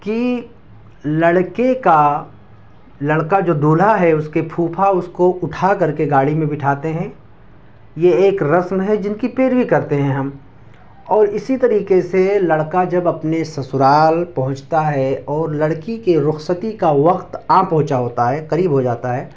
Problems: constant background noise